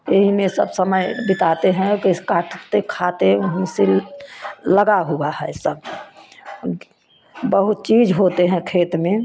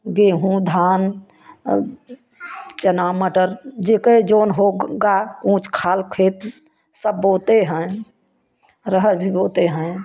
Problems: constant background noise, background conversations at intervals